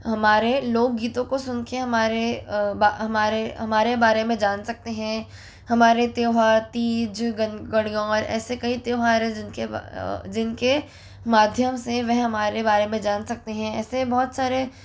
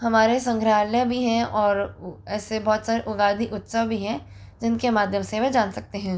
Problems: constant background noise